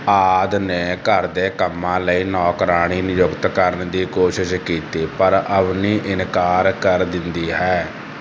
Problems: constant background noise